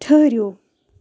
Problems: constant background noise